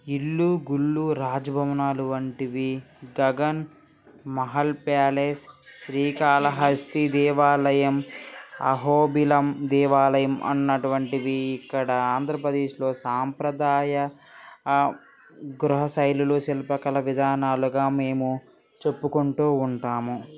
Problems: background conversations at intervals